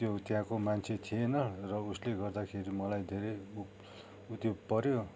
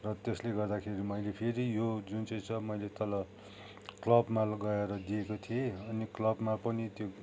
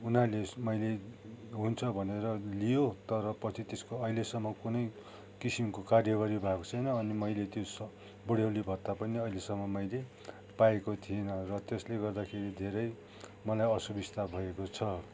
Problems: background sounds at intervals